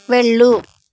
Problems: constant background noise